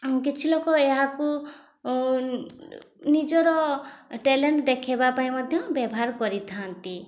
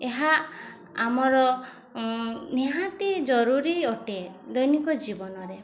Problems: constant background noise, continuous background conversations